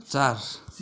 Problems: continuous background conversations